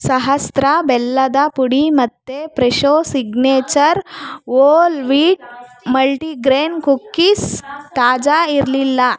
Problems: background conversations at intervals